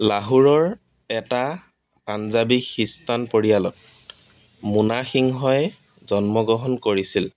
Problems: none marked